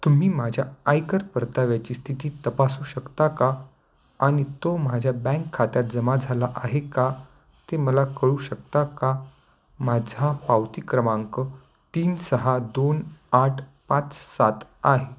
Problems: constant background noise, continuous background conversations